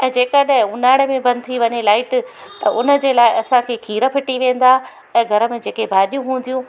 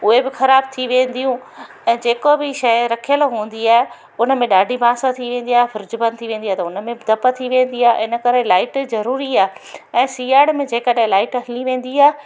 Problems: constant background noise